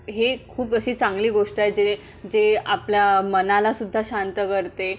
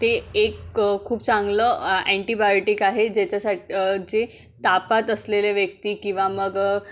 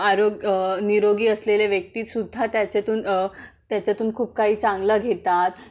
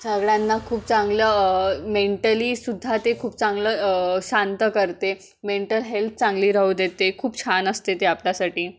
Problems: background sounds at intervals